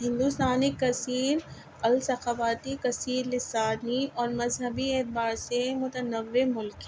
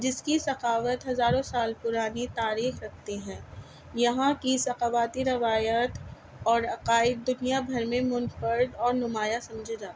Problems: constant background noise